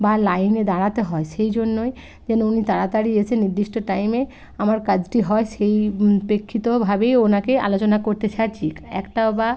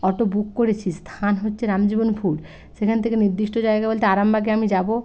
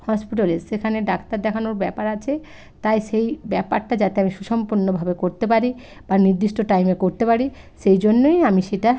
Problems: constant background noise